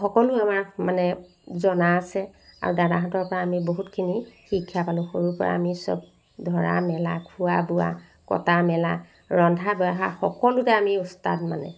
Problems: none marked